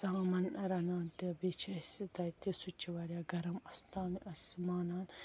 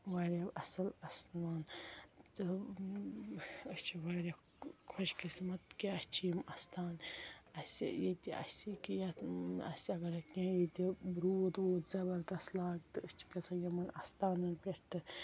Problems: background sounds at intervals